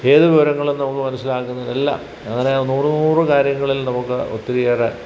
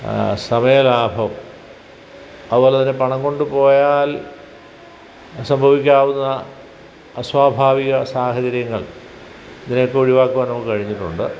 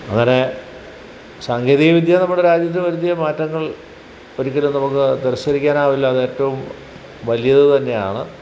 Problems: background sounds at intervals